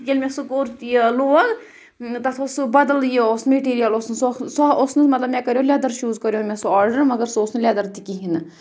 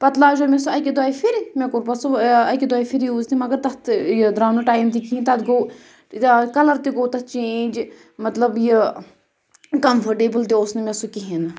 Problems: background sounds at intervals